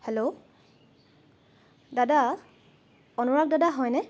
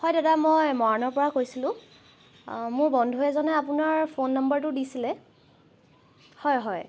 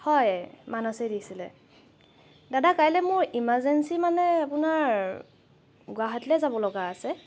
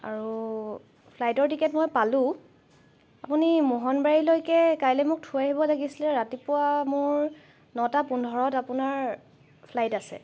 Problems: background sounds at intervals